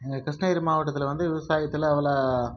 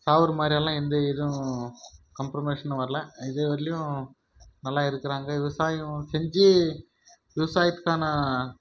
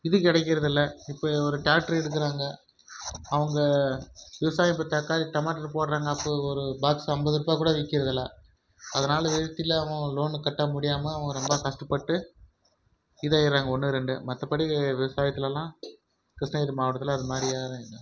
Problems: background sounds at intervals